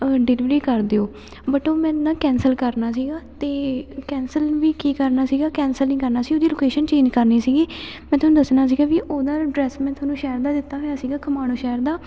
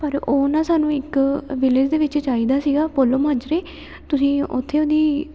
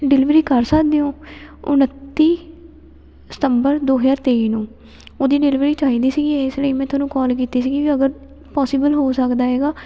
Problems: none marked